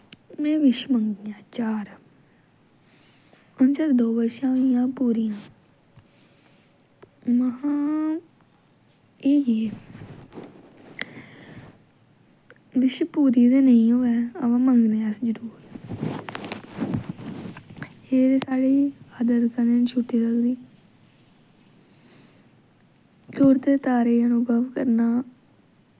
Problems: none marked